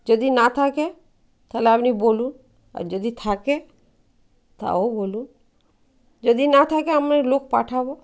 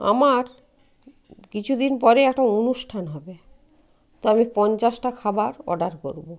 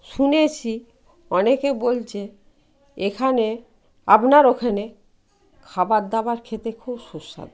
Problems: none marked